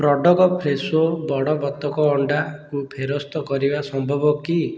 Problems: background conversations at intervals